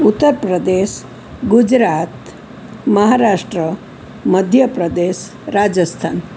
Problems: none marked